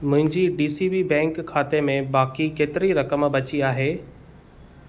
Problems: none marked